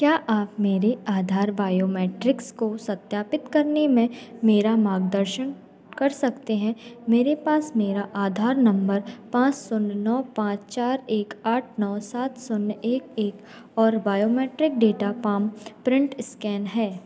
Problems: background sounds at intervals, continuous background conversations